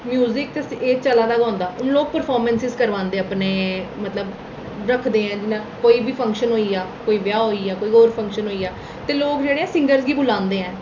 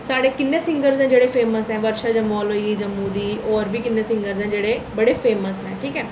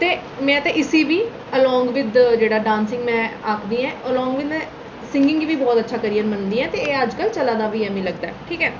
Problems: none marked